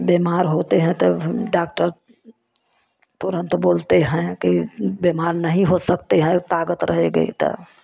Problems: none marked